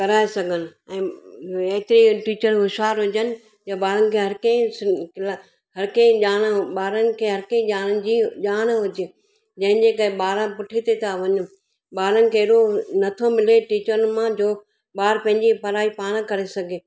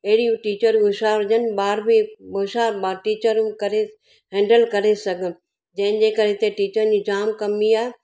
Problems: none marked